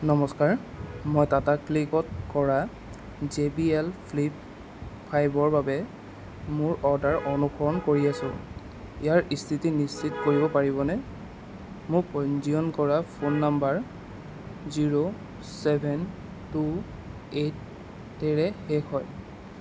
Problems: constant background noise